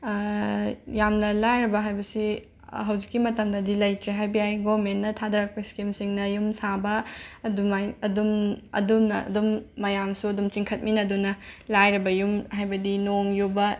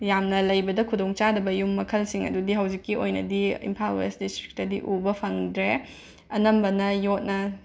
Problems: background sounds at intervals